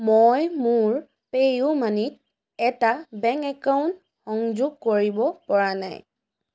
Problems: none marked